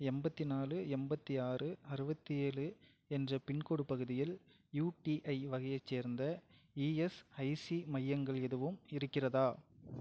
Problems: none marked